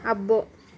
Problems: continuous background conversations